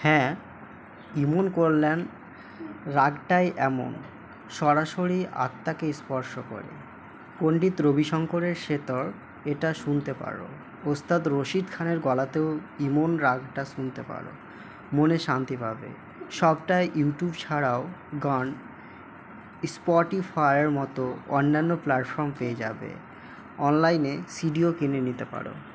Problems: none marked